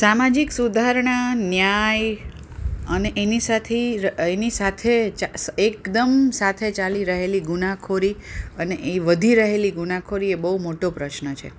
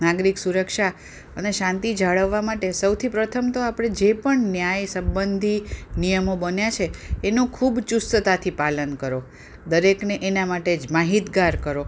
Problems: none marked